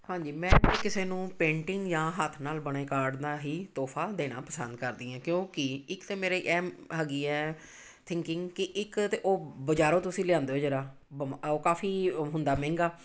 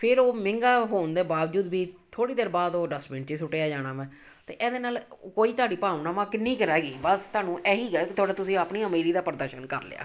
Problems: background sounds at intervals